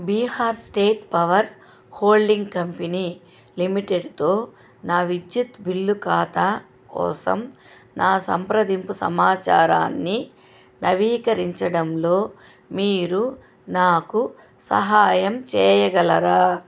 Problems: constant background noise